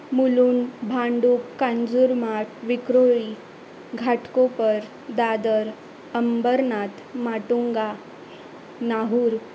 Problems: constant background noise